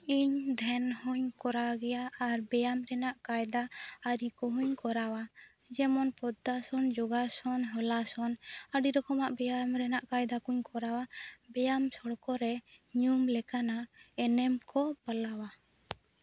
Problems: low volume